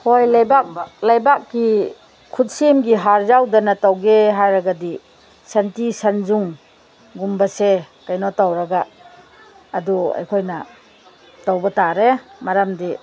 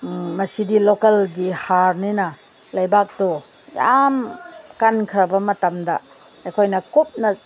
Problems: constant background noise